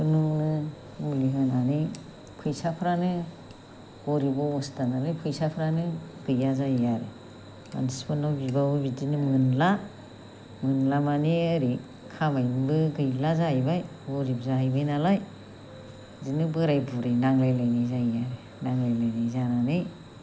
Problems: none marked